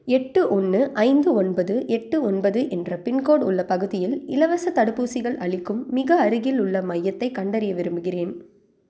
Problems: none marked